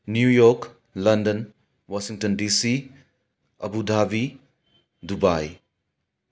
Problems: background sounds at intervals